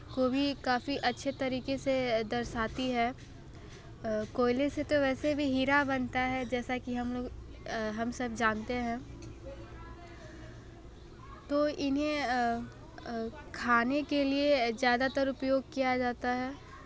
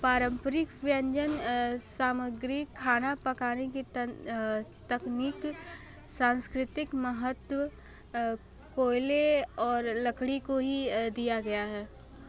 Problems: background conversations at intervals